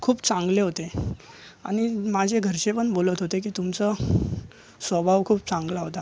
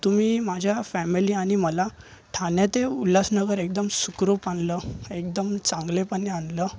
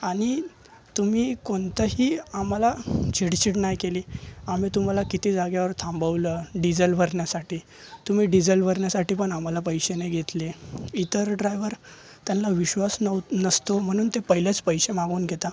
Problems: constant background noise, continuous background conversations